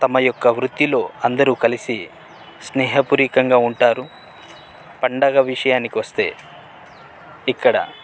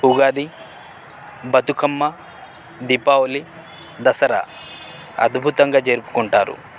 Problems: constant background noise